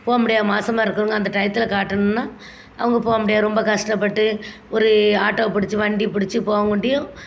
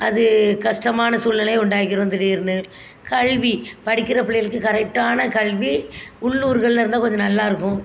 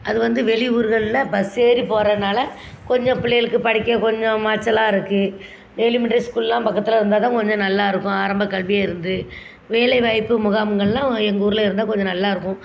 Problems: constant background noise